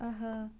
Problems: none marked